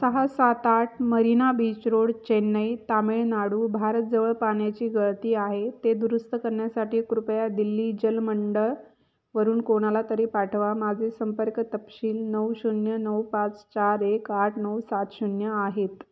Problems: none marked